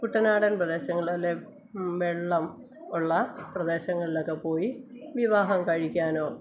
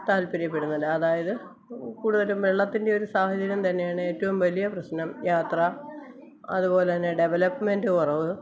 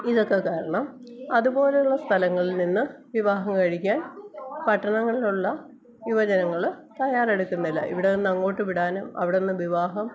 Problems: constant background noise, background conversations at intervals, low volume